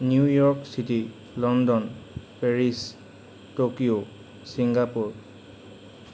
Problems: constant background noise